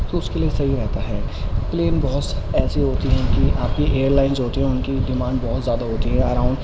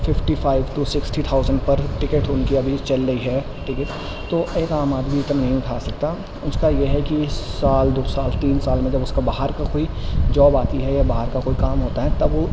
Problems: constant background noise